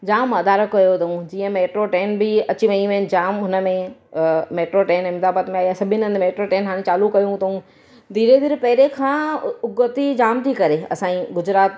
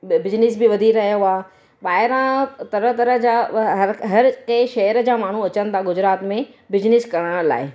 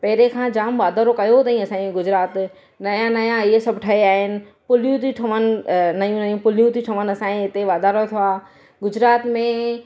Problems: none marked